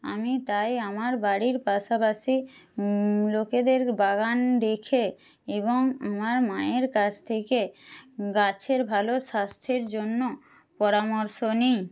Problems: none marked